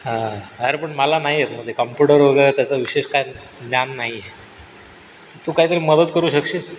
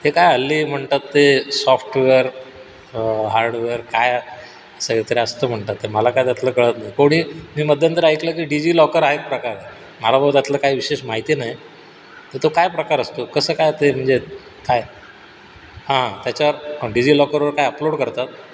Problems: background sounds at intervals